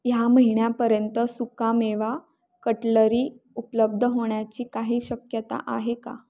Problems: none marked